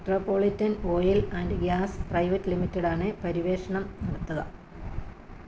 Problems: low volume